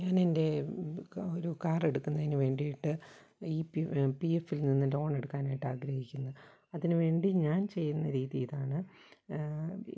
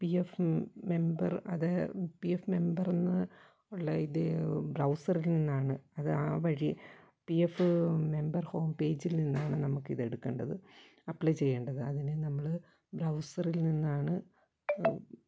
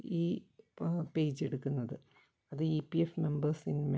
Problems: background sounds at intervals